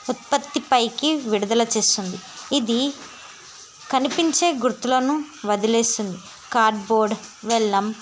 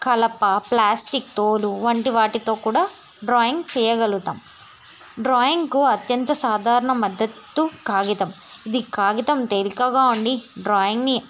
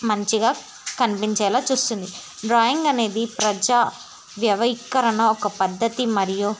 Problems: constant background noise